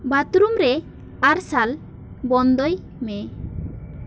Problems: constant background noise